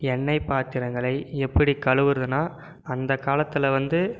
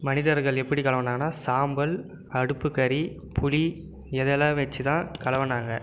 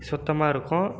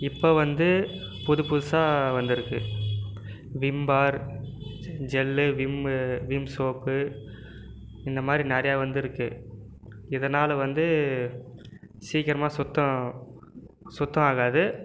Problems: background conversations at intervals